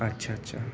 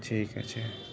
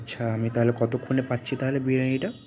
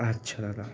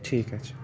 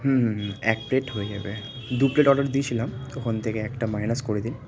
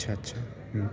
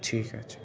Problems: constant background noise, continuous background conversations